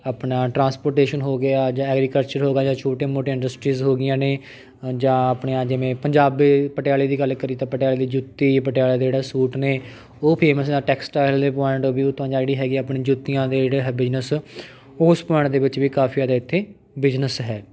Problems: constant background noise